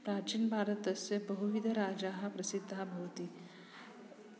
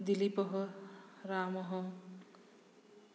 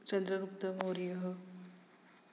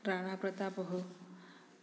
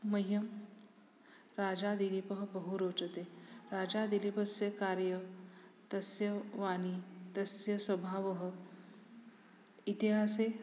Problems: background sounds at intervals